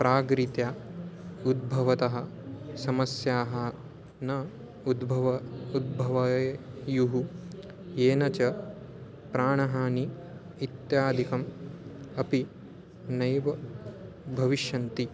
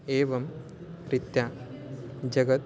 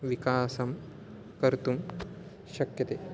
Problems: background sounds at intervals